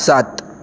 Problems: constant background noise